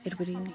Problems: background sounds at intervals